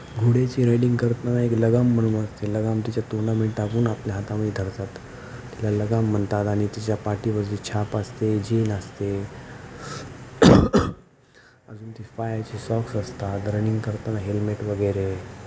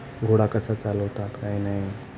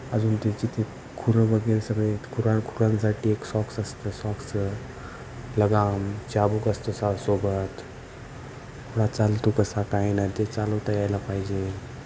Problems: none marked